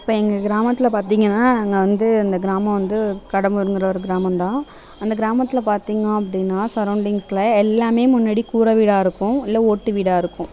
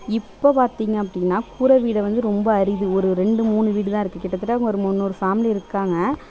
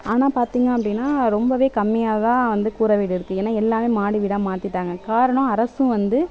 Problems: background sounds at intervals